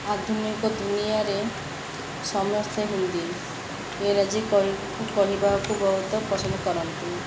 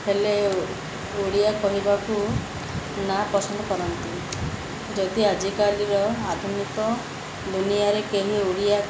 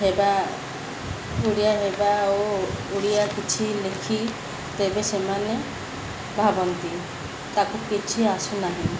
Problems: background sounds at intervals, background conversations at intervals